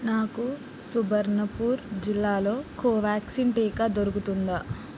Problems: low volume